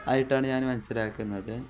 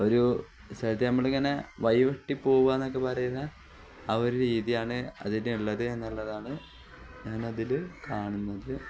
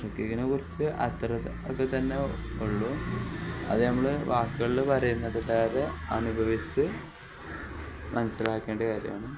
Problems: none marked